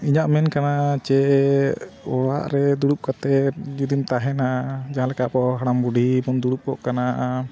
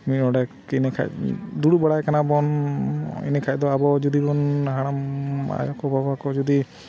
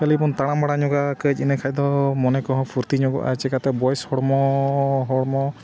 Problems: none marked